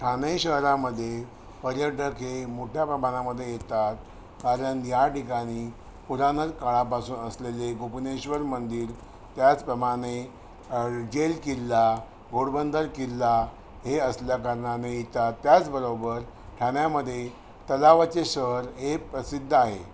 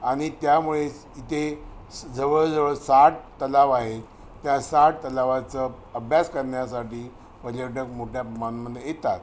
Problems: constant background noise